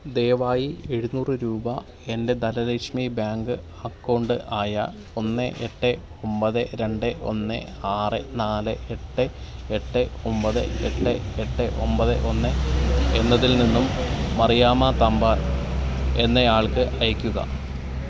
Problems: constant background noise